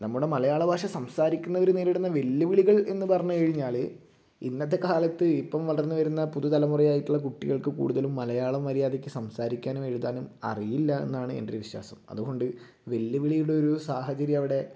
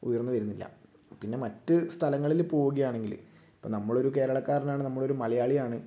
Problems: low volume